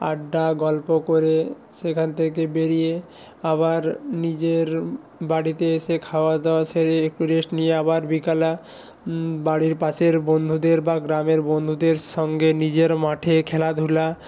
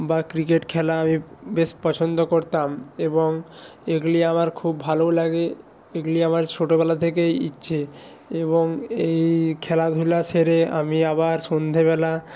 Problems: background sounds at intervals